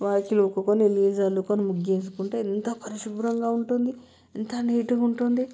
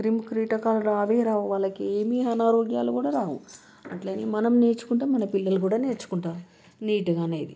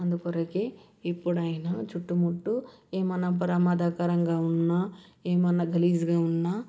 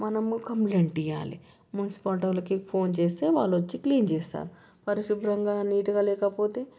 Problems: background sounds at intervals